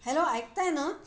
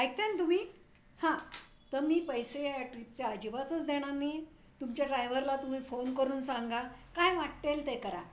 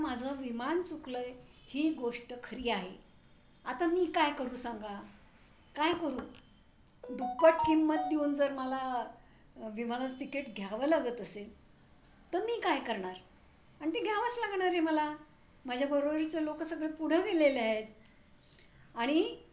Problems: none marked